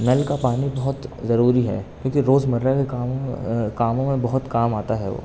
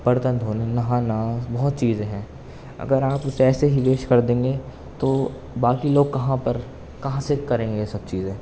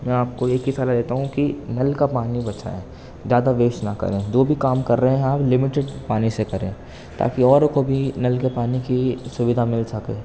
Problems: constant background noise